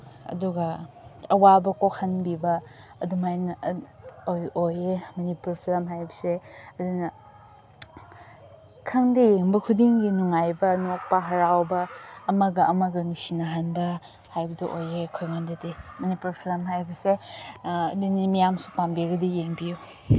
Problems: background conversations at intervals